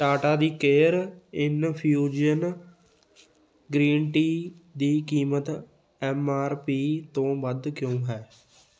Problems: background sounds at intervals, continuous background conversations